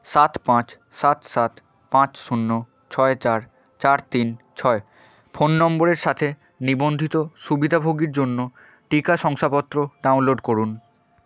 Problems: background sounds at intervals